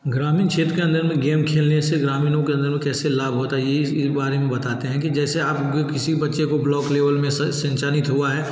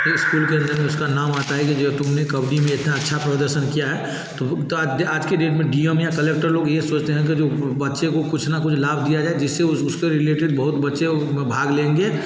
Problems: background sounds at intervals